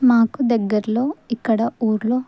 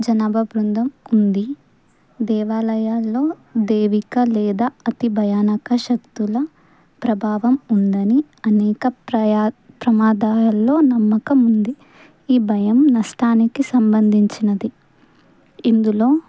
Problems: none marked